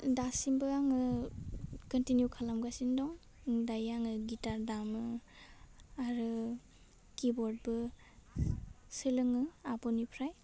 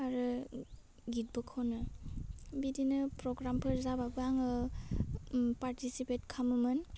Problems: low volume